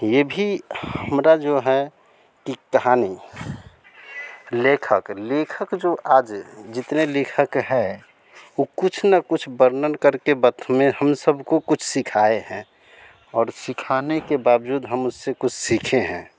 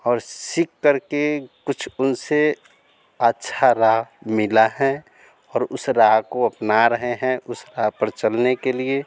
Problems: none marked